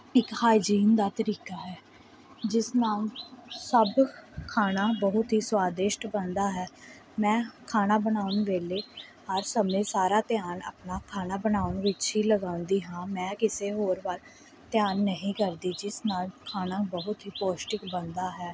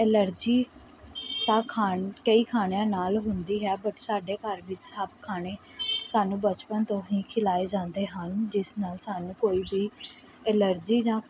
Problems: none marked